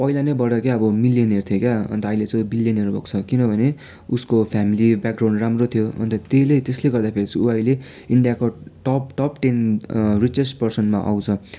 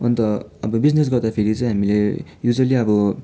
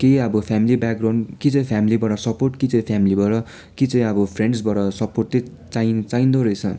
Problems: background sounds at intervals